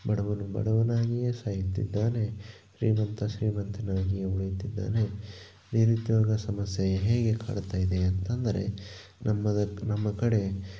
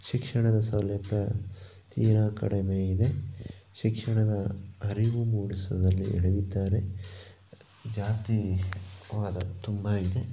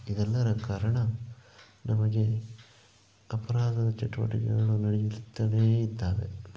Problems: none marked